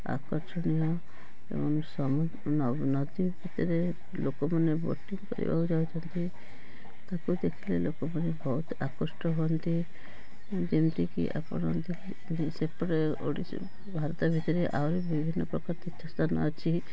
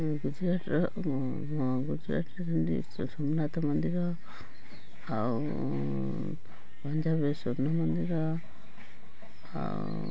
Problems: constant background noise, continuous background conversations